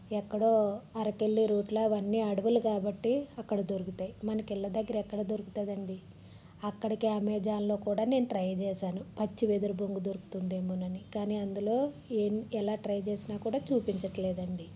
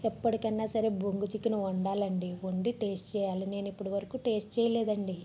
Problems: background sounds at intervals, low volume